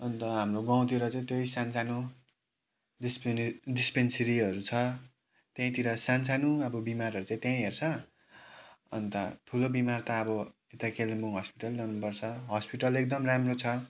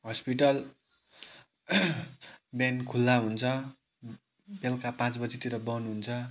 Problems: background sounds at intervals